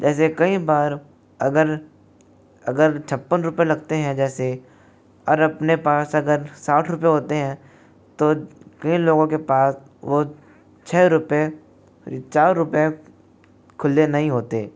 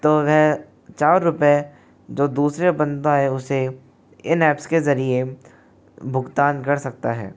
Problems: constant background noise